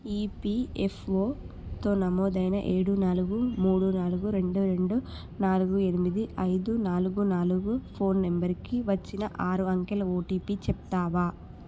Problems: none marked